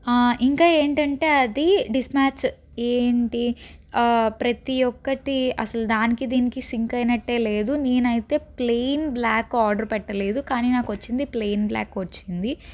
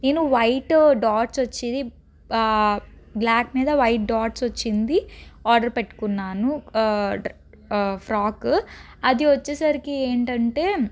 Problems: background sounds at intervals